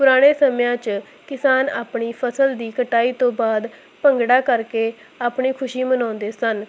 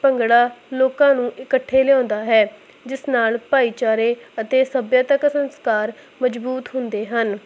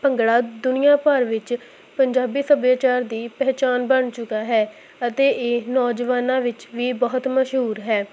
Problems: constant background noise